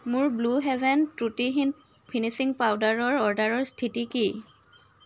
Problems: none marked